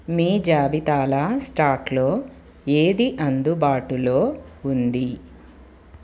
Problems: constant background noise